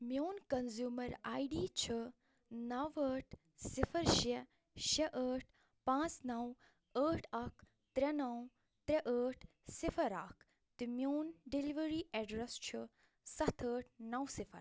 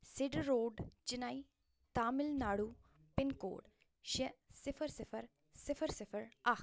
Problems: none marked